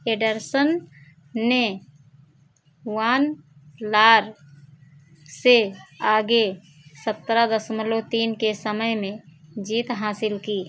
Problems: background sounds at intervals